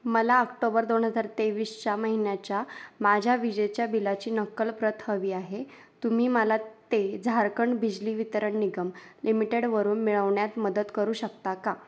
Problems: none marked